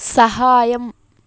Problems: constant background noise